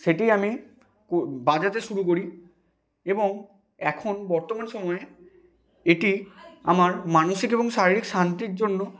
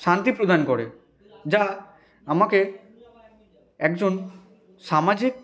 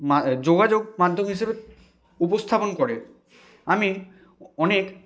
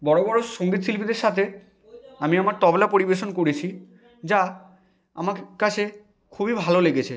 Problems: none marked